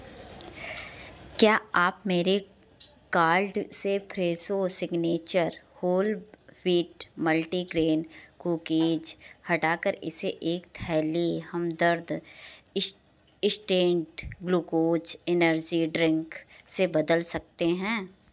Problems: background sounds at intervals